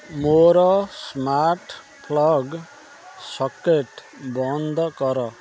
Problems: constant background noise